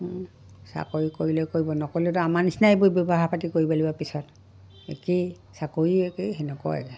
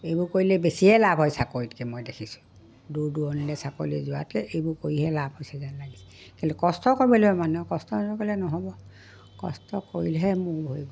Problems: background sounds at intervals, background conversations at intervals